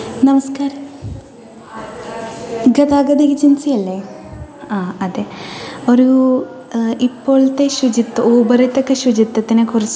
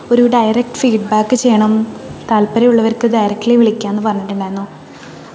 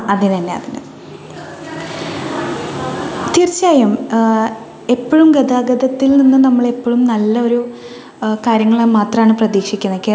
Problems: continuous background conversations